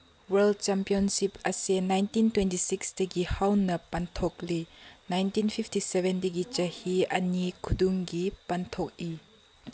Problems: background sounds at intervals